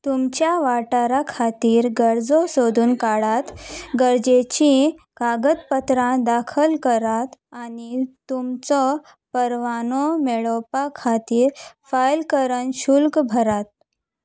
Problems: none marked